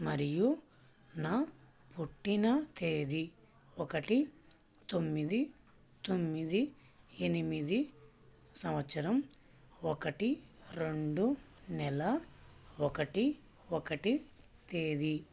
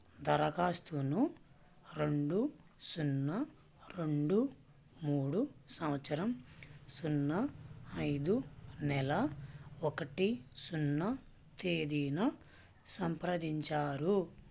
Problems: low volume